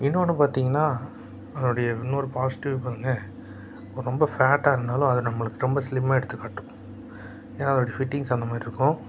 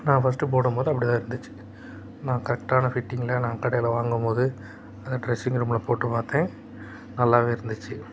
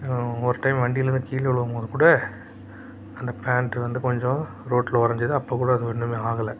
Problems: background sounds at intervals